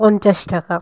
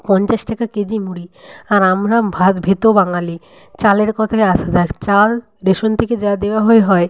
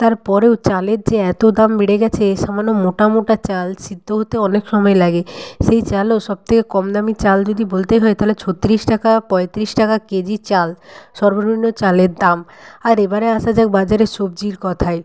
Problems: none marked